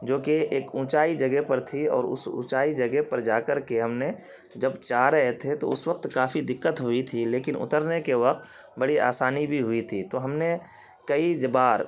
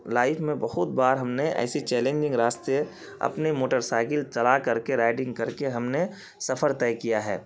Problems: constant background noise